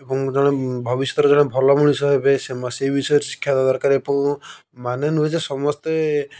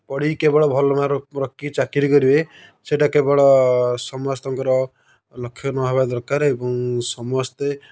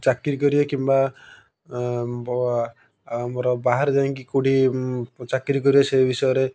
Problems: none marked